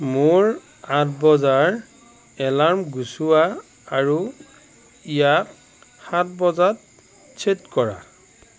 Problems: constant background noise